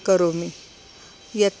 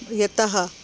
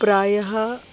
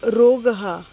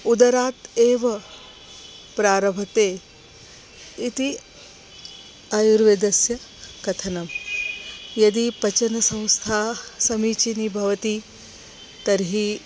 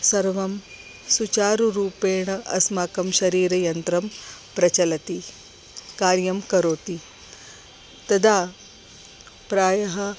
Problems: constant background noise